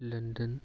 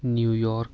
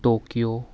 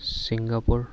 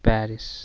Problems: constant background noise